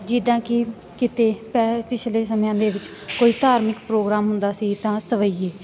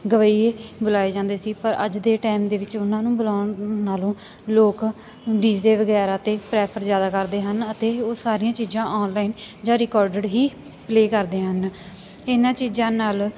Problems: constant background noise